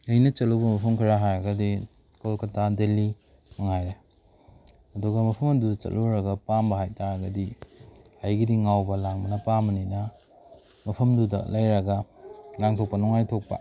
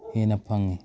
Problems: background sounds at intervals